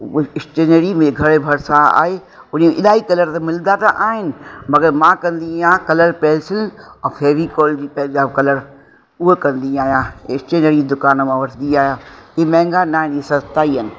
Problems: constant background noise, echo